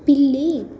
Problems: none marked